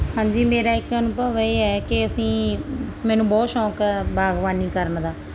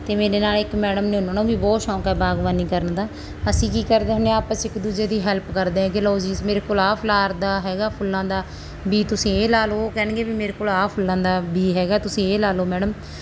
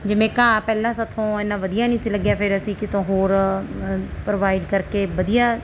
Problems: background sounds at intervals